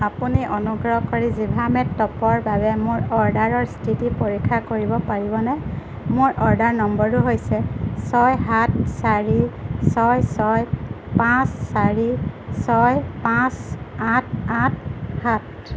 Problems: constant background noise